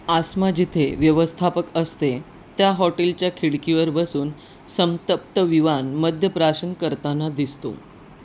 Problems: none marked